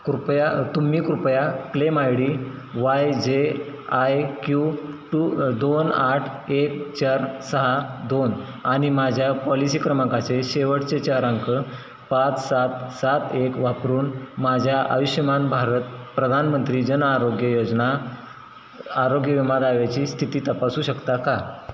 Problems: constant background noise